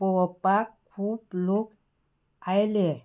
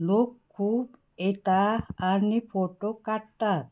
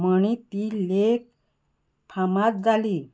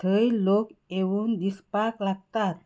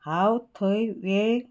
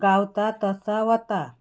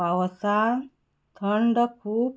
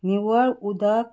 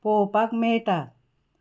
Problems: background sounds at intervals